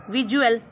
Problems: background sounds at intervals